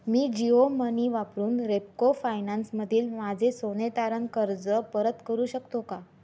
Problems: none marked